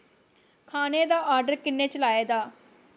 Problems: constant background noise